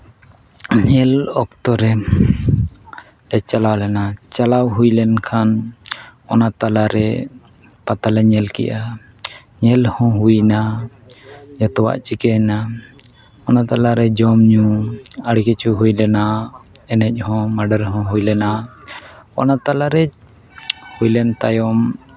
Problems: none marked